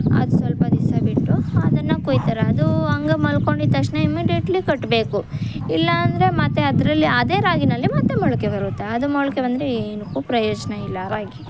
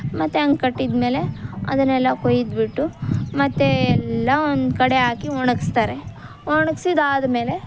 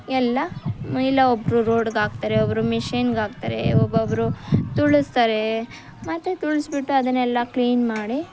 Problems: background sounds at intervals